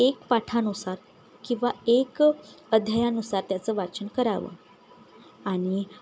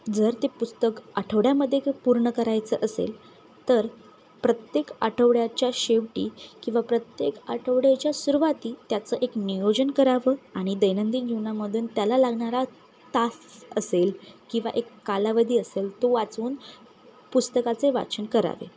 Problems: none marked